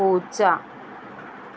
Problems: constant background noise